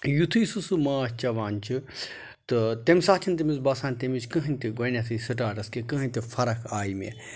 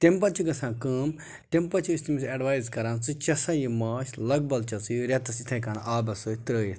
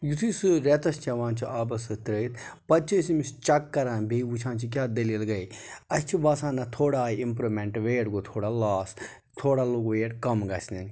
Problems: background sounds at intervals